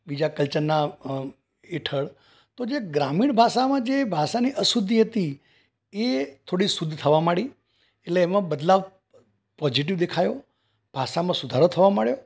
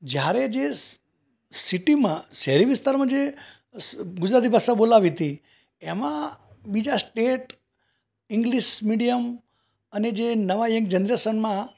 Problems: background sounds at intervals